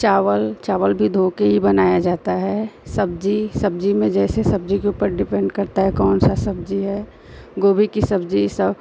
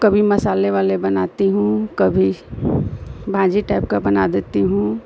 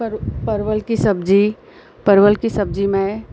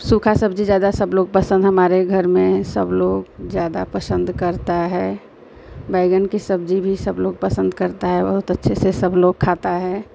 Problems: constant background noise